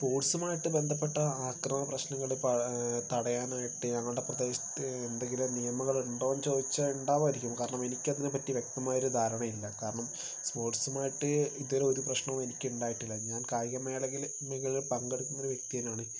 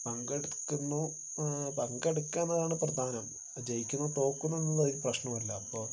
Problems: constant background noise